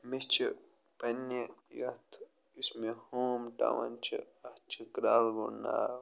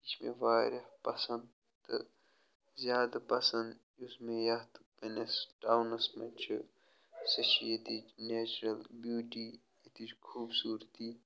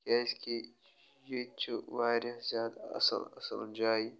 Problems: none marked